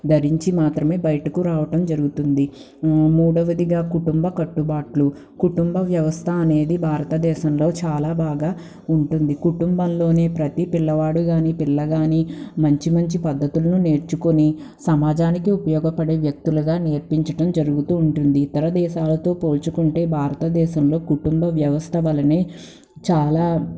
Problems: background sounds at intervals